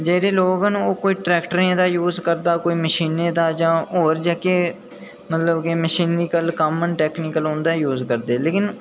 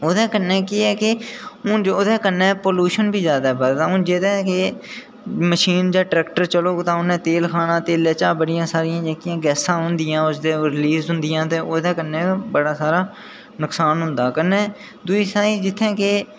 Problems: none marked